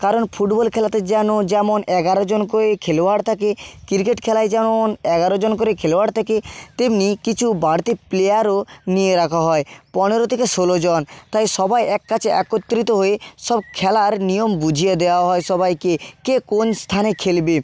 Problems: none marked